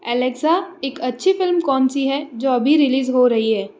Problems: constant background noise